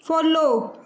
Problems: none marked